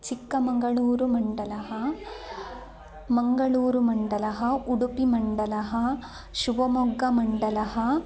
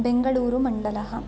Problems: low volume